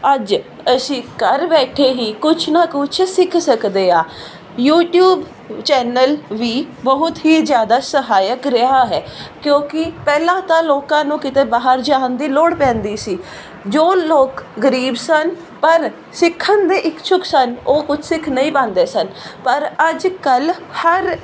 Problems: none marked